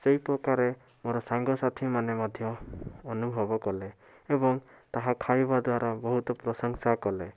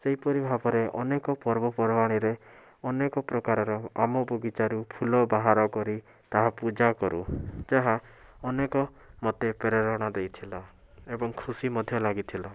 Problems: constant background noise